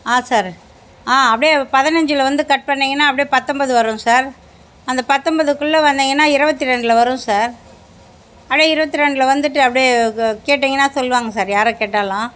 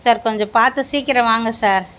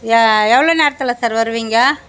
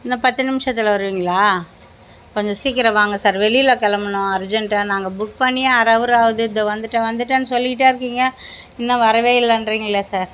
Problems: none marked